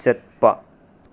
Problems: low volume